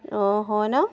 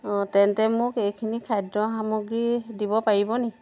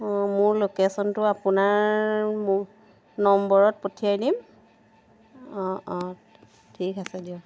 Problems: background sounds at intervals